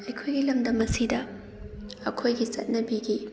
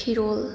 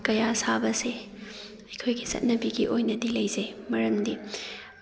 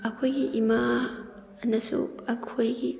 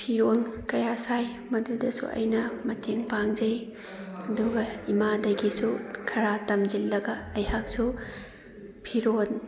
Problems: background sounds at intervals, background conversations at intervals